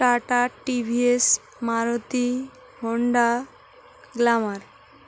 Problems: constant background noise